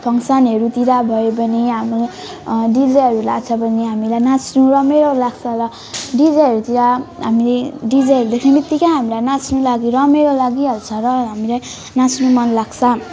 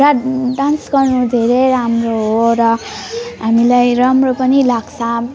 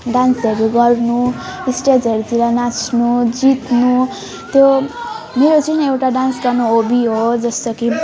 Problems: continuous background conversations